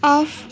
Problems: constant background noise